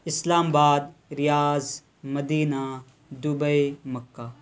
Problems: constant background noise